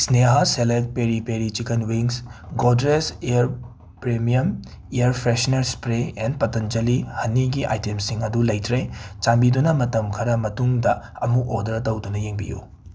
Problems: background sounds at intervals